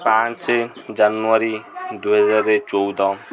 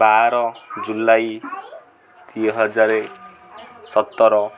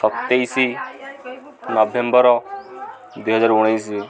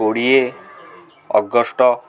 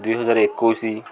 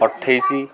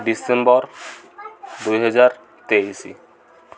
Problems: none marked